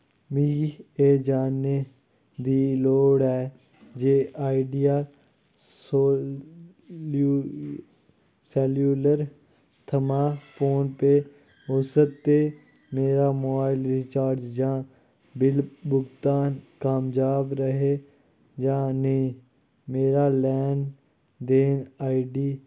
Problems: low volume